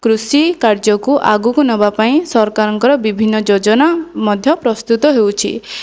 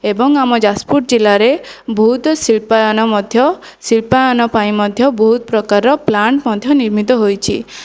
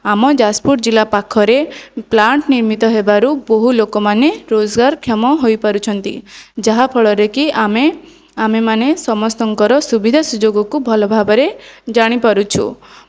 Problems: none marked